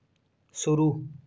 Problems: background sounds at intervals